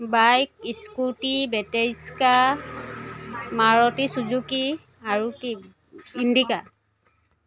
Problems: none marked